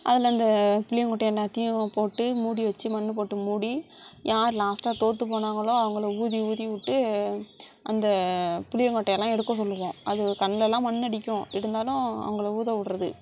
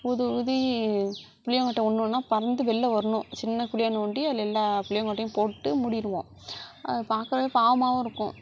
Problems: none marked